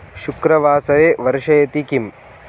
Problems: constant background noise